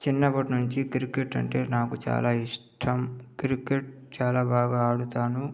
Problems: none marked